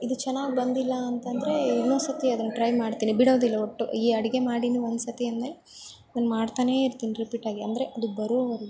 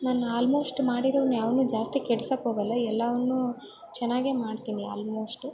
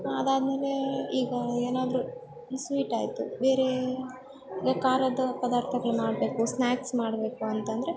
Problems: background sounds at intervals